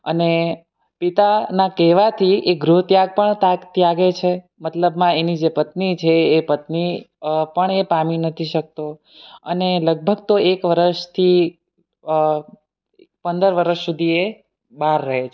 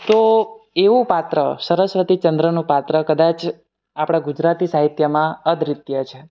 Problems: none marked